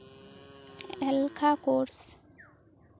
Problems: constant background noise